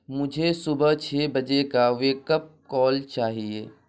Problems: constant background noise